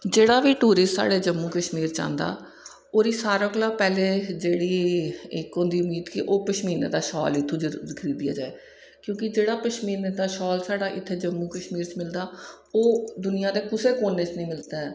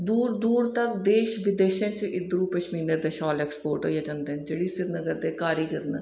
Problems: echo